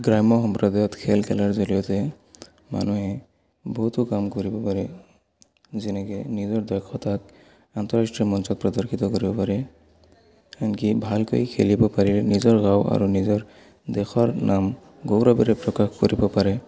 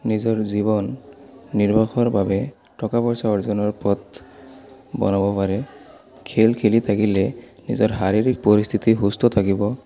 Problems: background sounds at intervals, background conversations at intervals